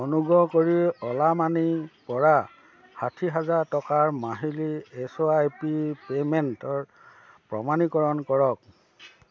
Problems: constant background noise